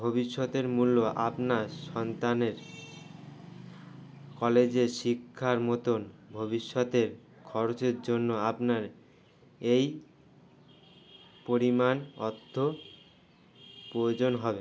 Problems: constant background noise